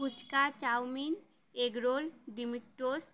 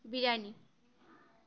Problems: background sounds at intervals